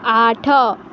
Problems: constant background noise